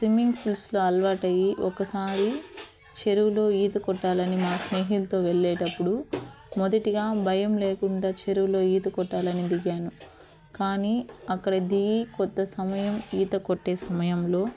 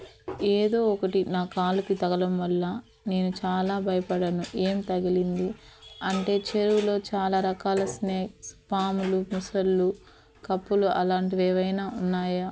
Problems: constant background noise